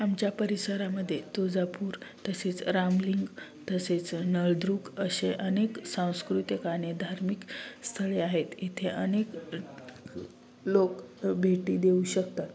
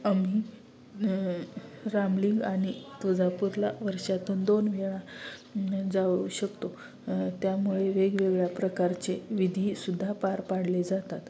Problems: none marked